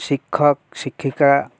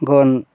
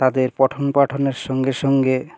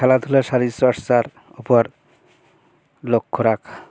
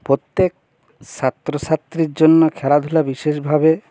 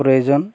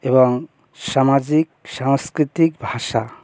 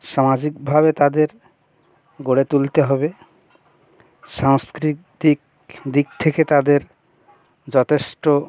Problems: constant background noise